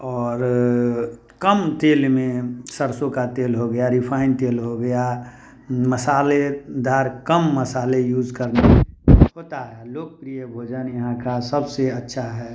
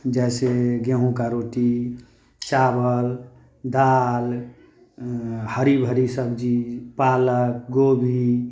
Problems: constant background noise